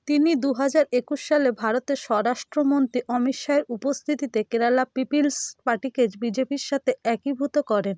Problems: constant background noise